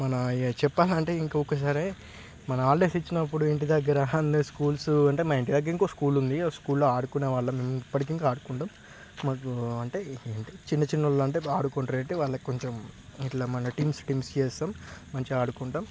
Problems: background sounds at intervals